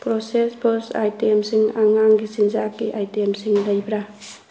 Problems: none marked